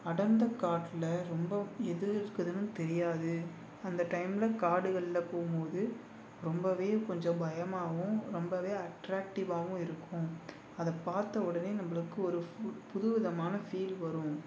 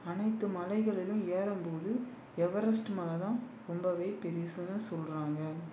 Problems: none marked